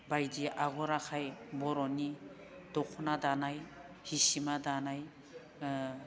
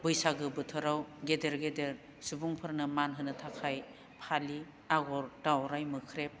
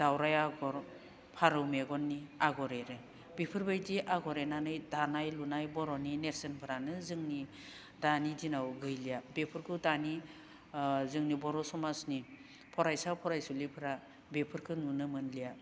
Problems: none marked